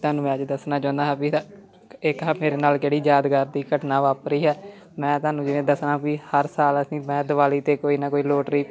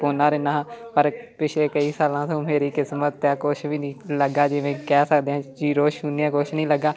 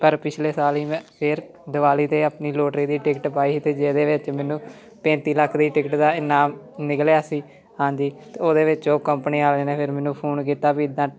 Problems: background conversations at intervals